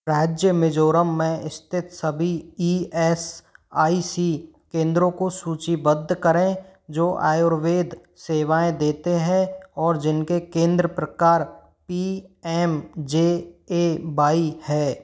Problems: none marked